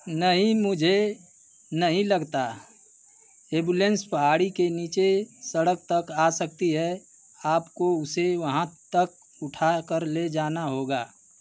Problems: none marked